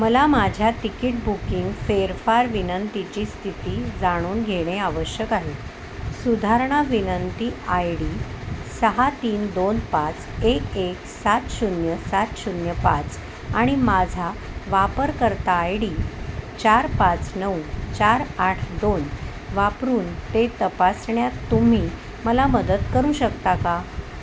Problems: constant background noise